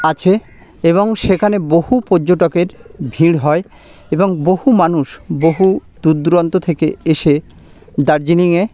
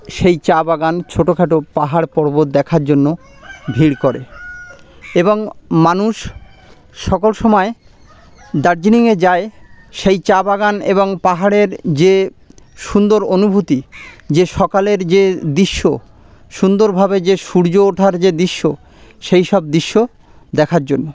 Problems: constant background noise, background conversations at intervals